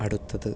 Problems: none marked